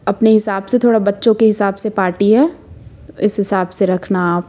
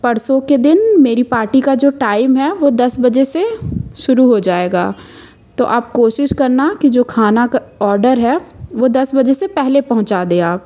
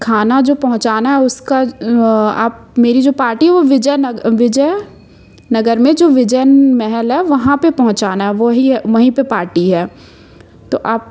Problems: constant background noise